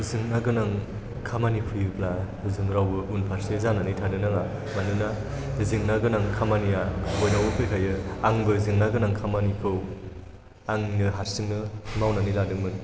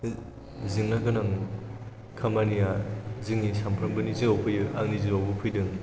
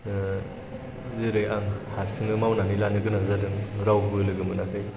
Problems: background sounds at intervals